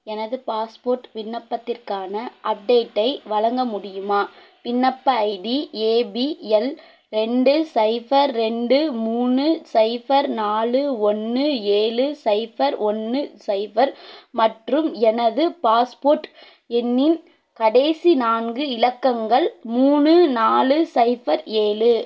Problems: none marked